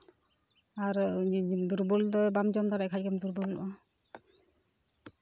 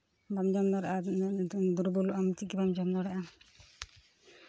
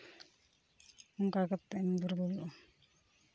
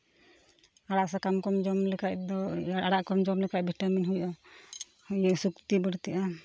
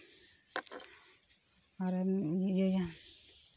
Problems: none marked